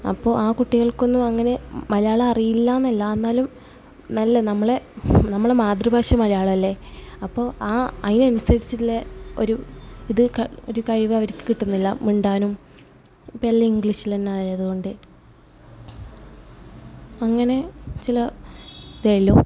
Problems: background sounds at intervals